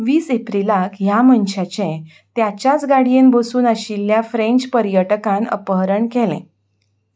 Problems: background sounds at intervals